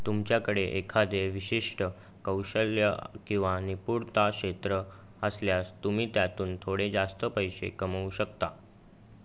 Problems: none marked